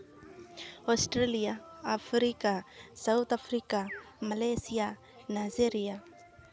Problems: constant background noise